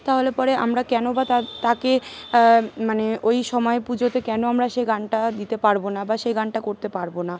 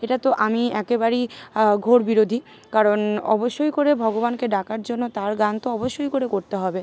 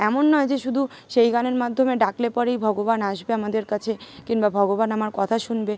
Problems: constant background noise, continuous background conversations